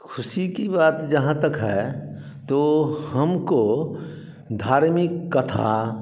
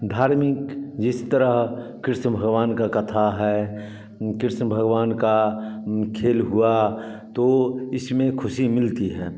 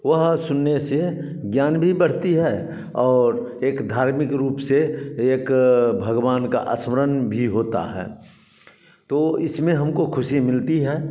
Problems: background sounds at intervals, echo